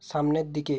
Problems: none marked